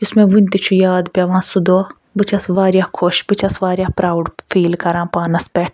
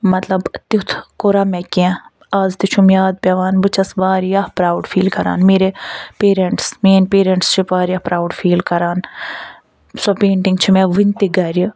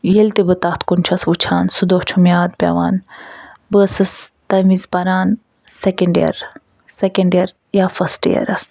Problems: none marked